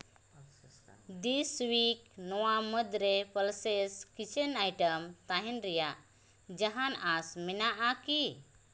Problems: constant background noise, echo